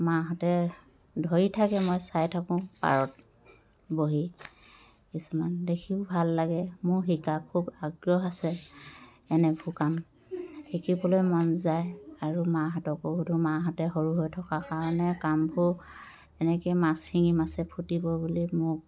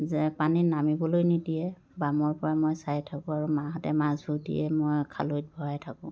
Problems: none marked